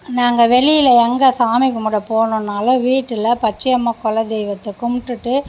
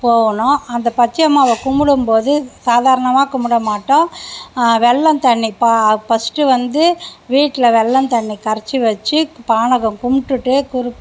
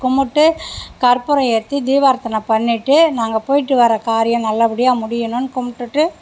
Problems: none marked